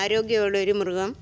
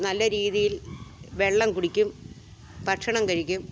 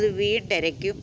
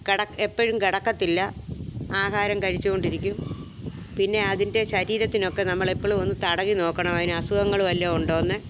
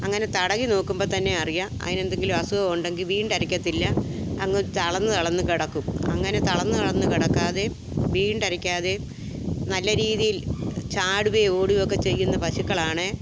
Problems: background sounds at intervals